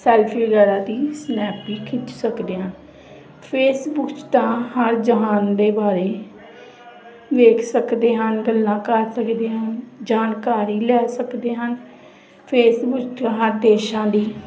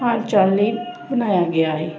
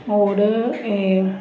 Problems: constant background noise, continuous background conversations